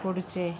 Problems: constant background noise